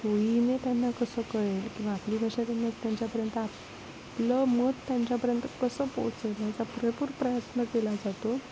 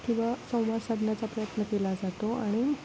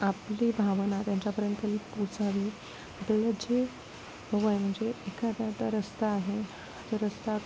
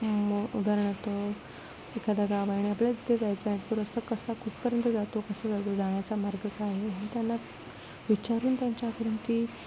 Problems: constant background noise, low volume